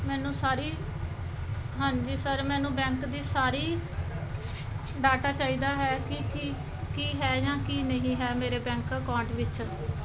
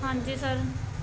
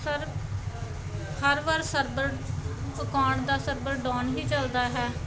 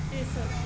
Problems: background sounds at intervals